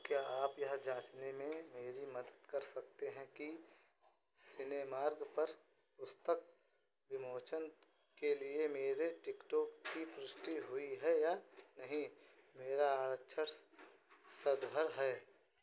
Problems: constant background noise